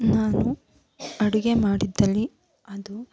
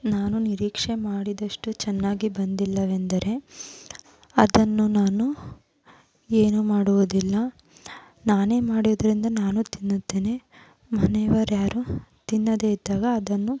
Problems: background sounds at intervals